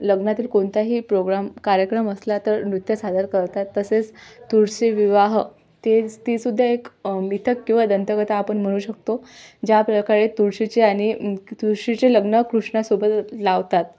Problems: constant background noise